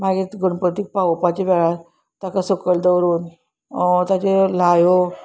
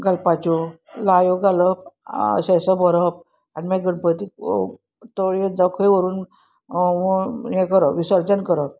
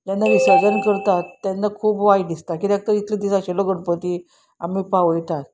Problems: none marked